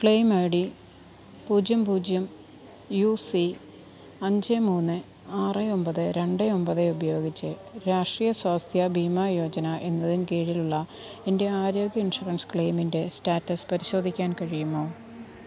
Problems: constant background noise